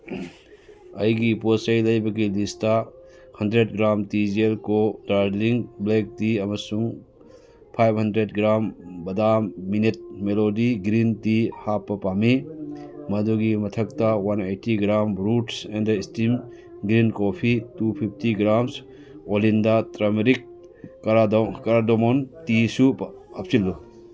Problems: background sounds at intervals, background conversations at intervals